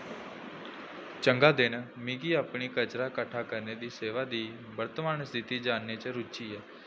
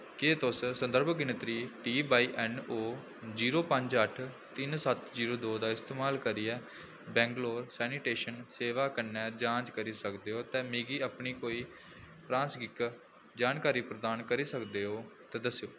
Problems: low volume